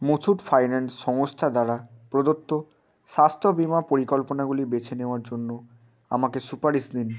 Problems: background sounds at intervals